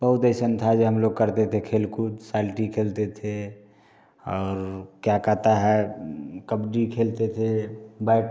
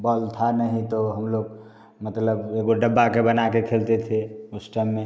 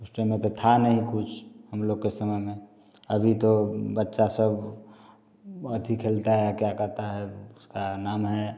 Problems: none marked